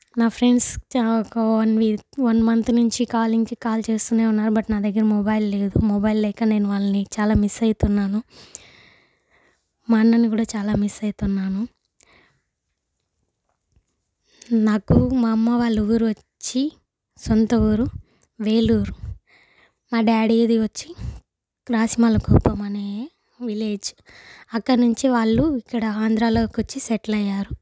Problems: none marked